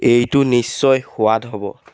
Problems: background sounds at intervals